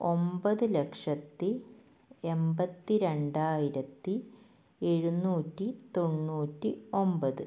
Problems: low volume